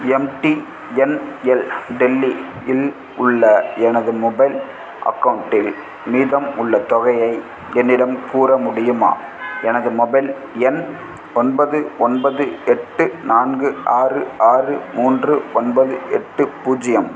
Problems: background sounds at intervals